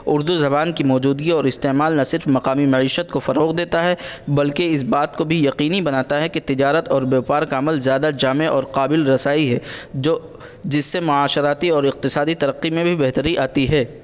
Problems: constant background noise